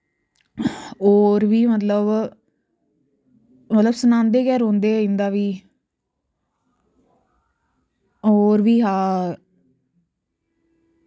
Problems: none marked